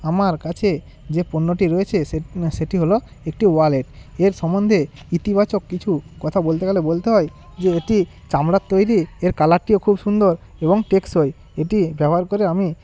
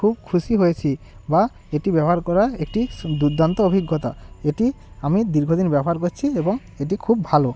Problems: constant background noise